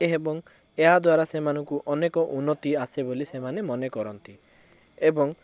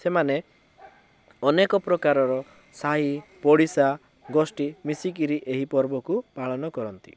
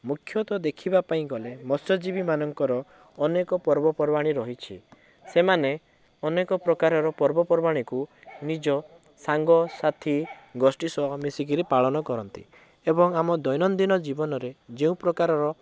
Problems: background sounds at intervals